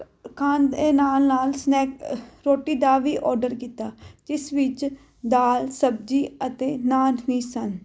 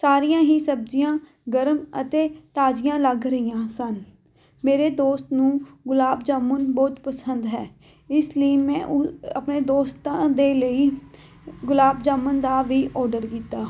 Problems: background sounds at intervals